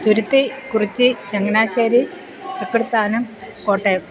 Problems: constant background noise